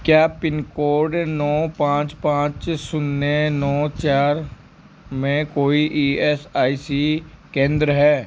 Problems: none marked